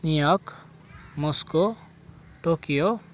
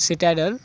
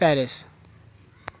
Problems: constant background noise